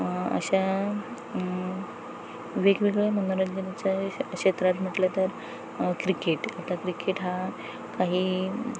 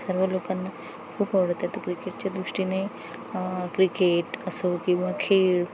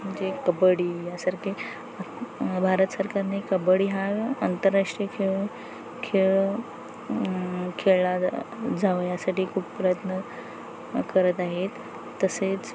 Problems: constant background noise, background conversations at intervals